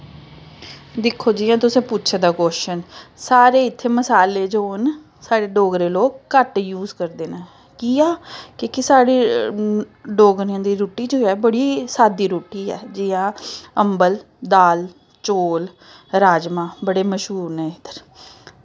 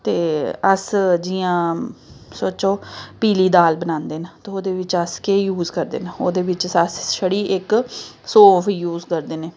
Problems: background sounds at intervals